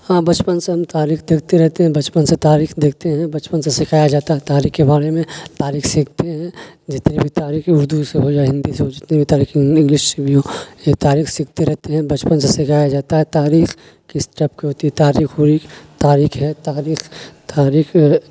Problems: constant background noise